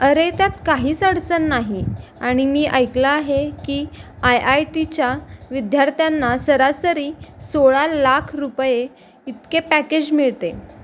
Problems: constant background noise